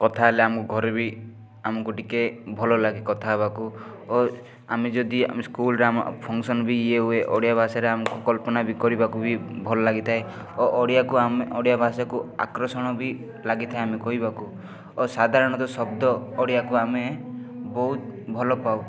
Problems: none marked